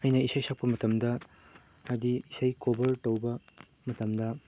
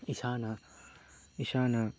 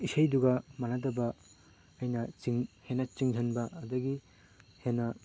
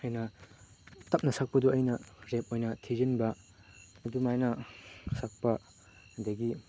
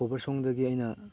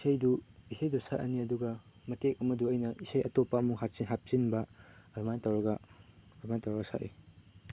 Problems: background sounds at intervals